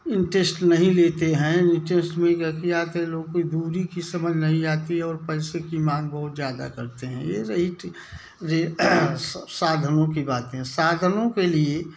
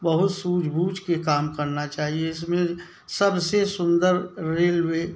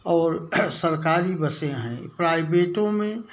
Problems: none marked